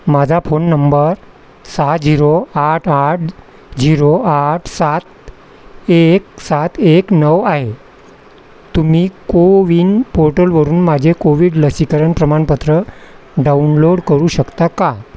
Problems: constant background noise